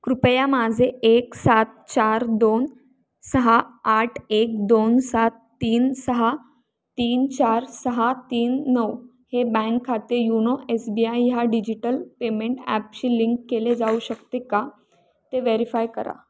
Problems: background sounds at intervals